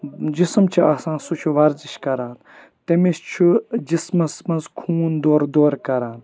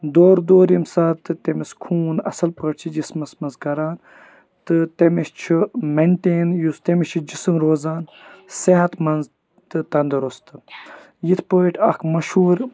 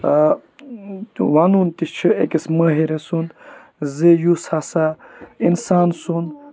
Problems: background sounds at intervals